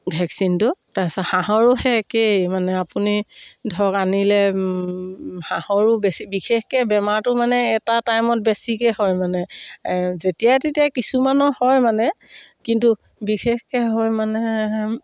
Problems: none marked